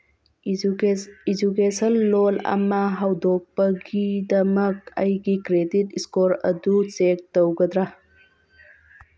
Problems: background sounds at intervals